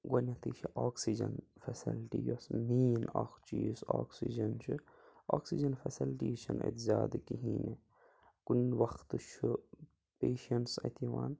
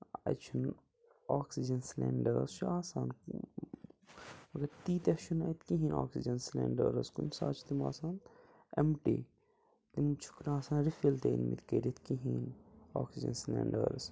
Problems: background sounds at intervals, low volume